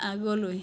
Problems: none marked